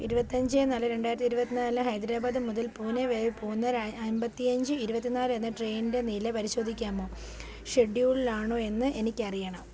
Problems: none marked